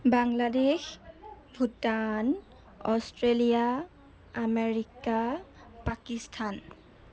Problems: none marked